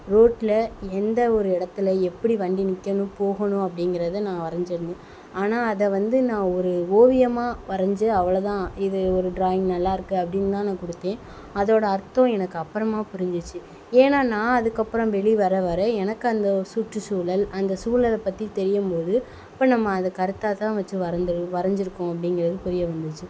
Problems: constant background noise